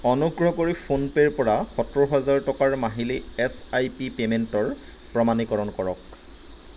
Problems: none marked